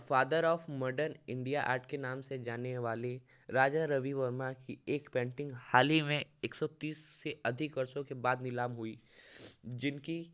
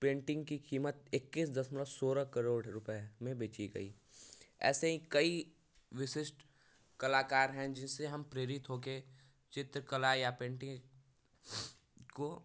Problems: none marked